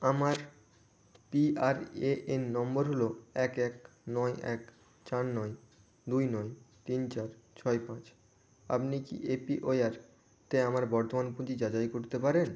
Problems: constant background noise